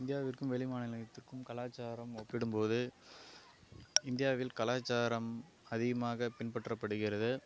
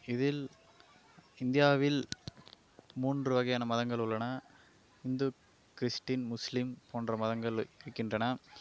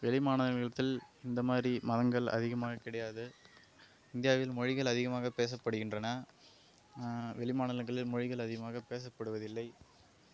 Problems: low volume